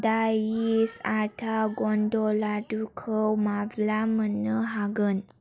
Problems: constant background noise